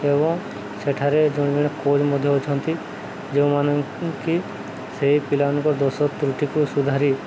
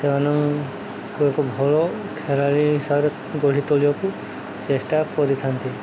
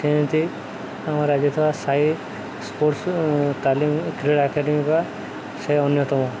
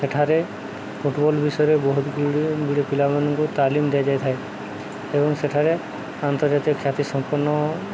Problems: constant background noise